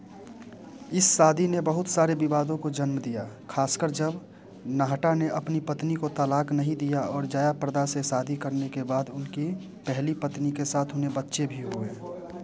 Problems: background conversations at intervals